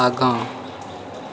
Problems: constant background noise